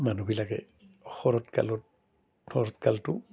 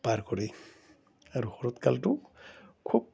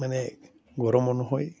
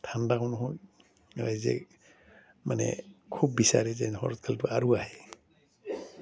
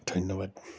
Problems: none marked